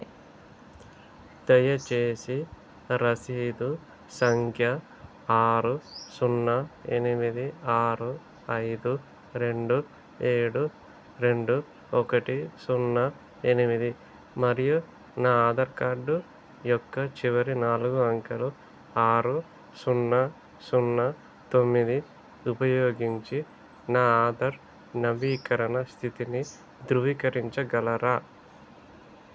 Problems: none marked